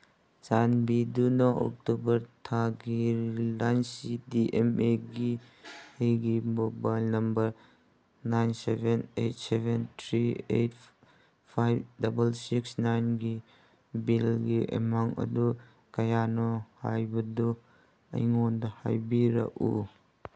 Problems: none marked